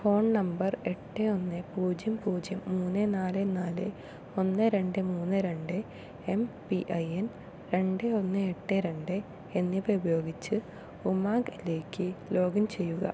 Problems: low volume